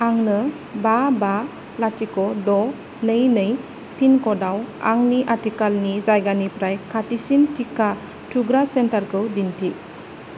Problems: low volume